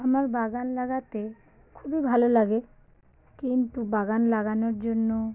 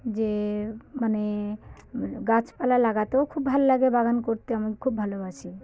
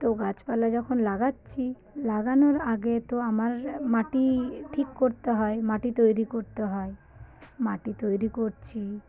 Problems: constant background noise, background conversations at intervals